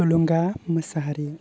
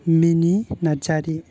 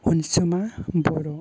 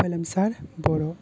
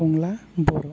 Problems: low volume